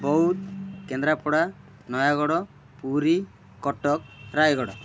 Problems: background sounds at intervals